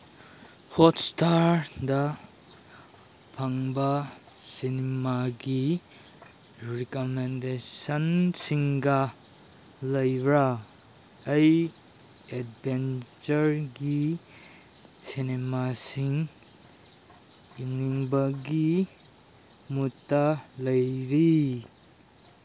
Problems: background sounds at intervals